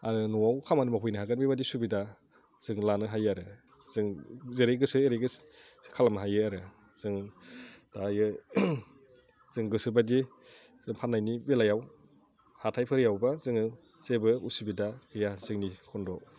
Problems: low volume